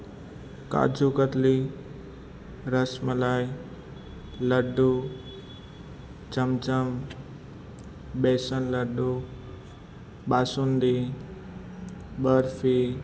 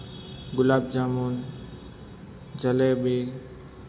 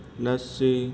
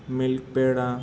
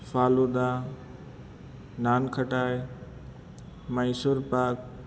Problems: constant background noise